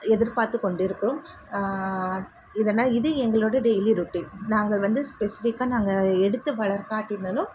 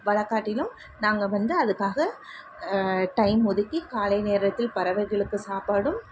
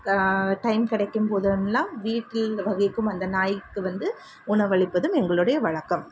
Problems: constant background noise